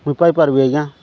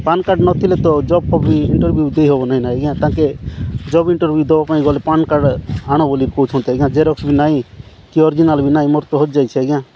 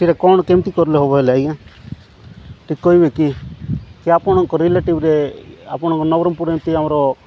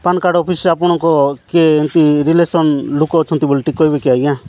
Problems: none marked